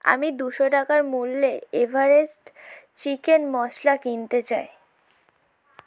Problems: background sounds at intervals